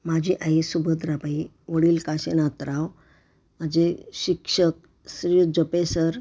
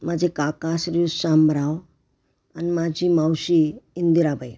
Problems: none marked